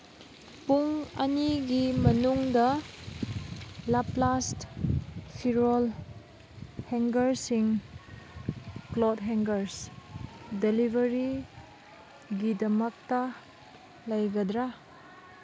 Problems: constant background noise